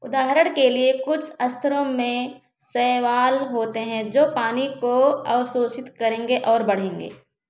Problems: background sounds at intervals